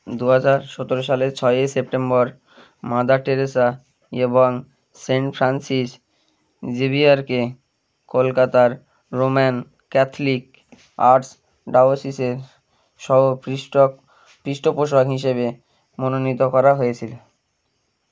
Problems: none marked